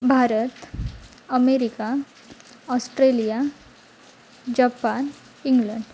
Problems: constant background noise